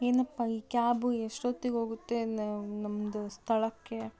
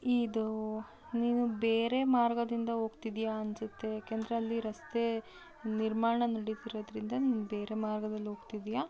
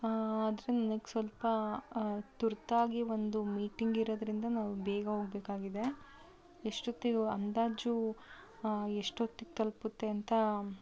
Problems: constant background noise